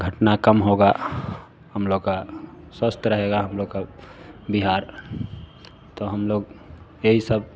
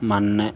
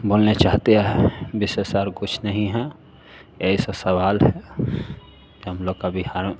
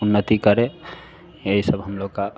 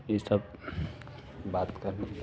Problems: constant background noise